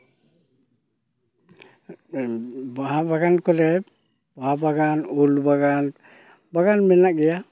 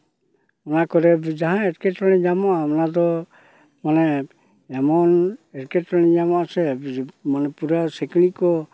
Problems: none marked